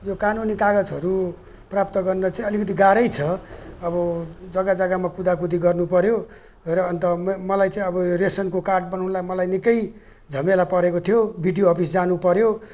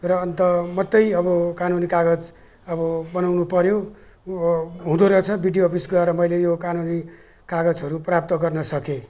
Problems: none marked